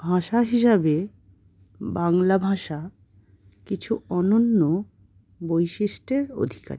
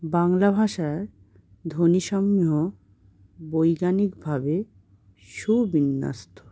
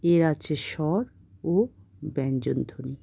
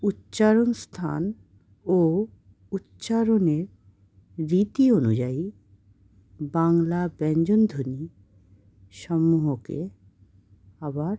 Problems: none marked